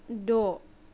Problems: none marked